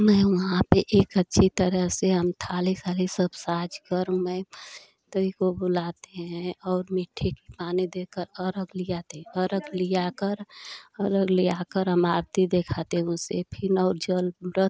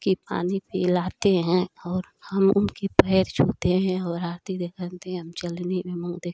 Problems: none marked